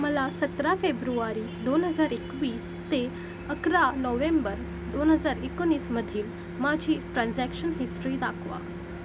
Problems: constant background noise